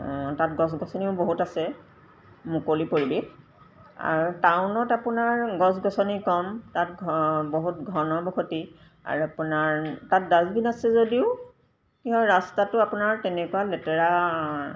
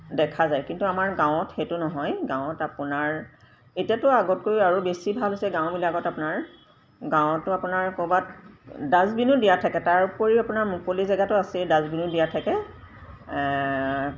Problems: background sounds at intervals